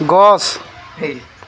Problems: constant background noise